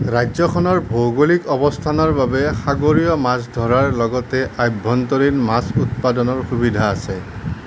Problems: constant background noise